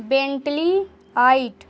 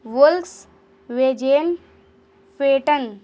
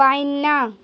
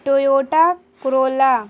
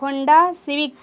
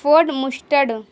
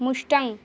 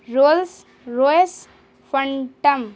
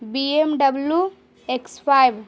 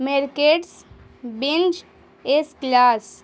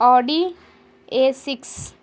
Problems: constant background noise